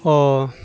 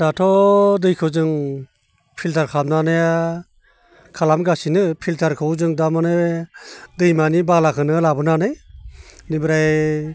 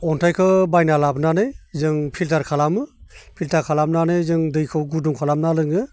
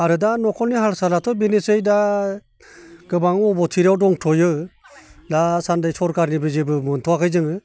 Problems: constant background noise